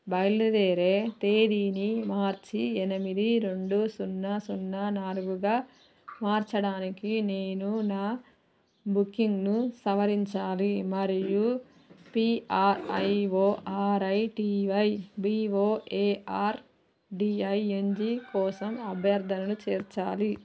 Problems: none marked